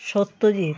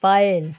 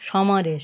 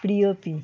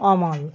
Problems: background sounds at intervals